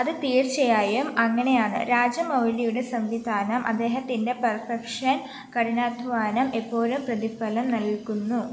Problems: constant background noise